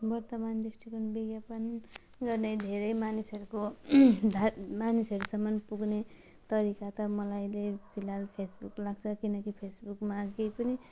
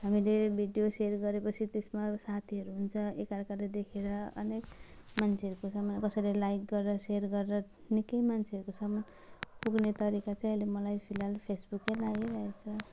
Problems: background sounds at intervals